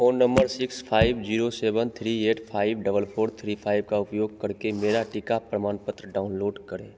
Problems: constant background noise, echo